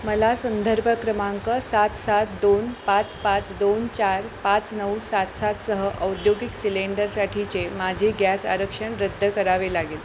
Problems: constant background noise